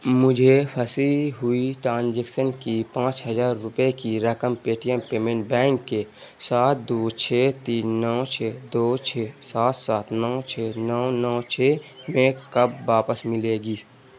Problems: constant background noise